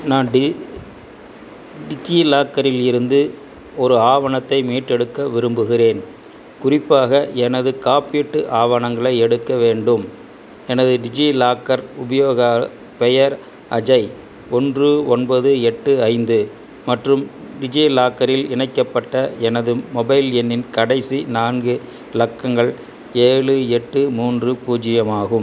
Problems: background sounds at intervals